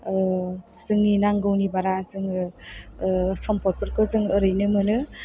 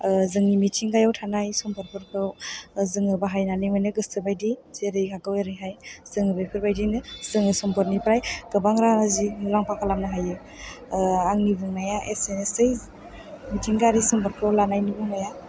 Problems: background sounds at intervals